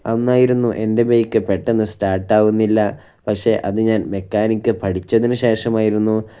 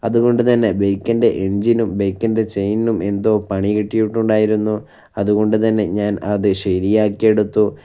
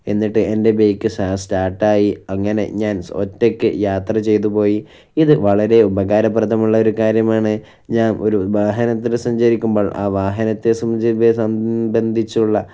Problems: none marked